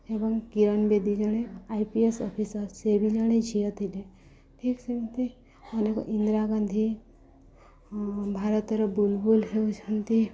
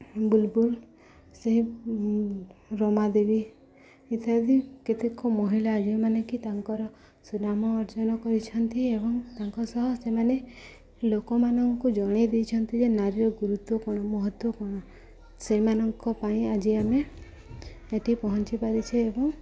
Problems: constant background noise, continuous background conversations